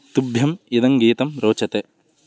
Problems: none marked